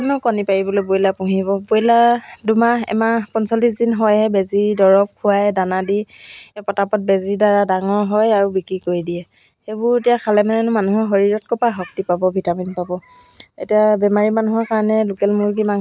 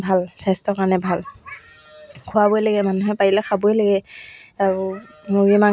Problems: none marked